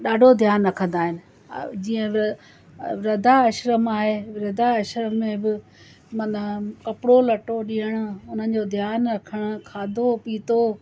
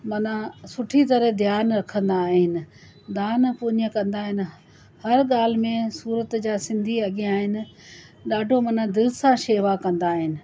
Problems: constant background noise